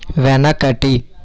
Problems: constant background noise, continuous background conversations